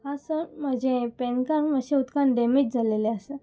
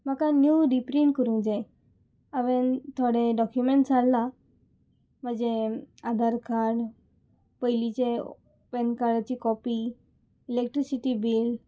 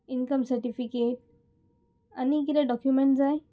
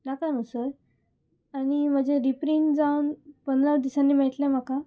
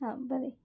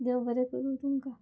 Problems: none marked